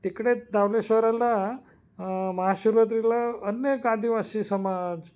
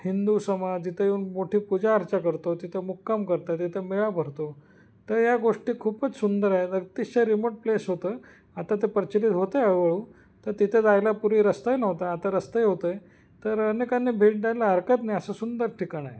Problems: background sounds at intervals